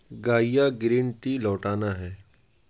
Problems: none marked